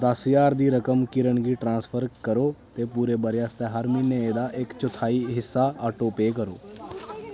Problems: constant background noise